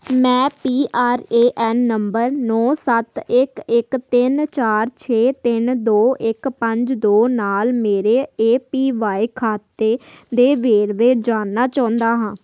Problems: background sounds at intervals